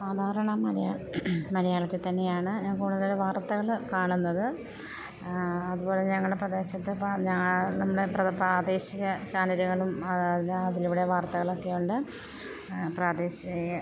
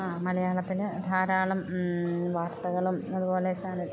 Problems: constant background noise